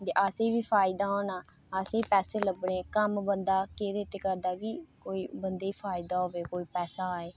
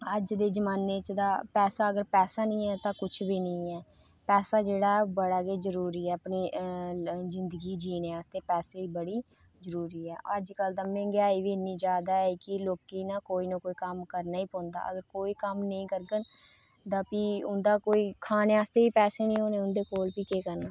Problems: none marked